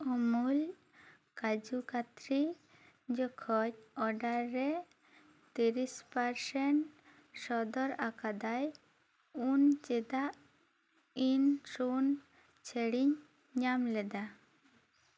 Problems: low volume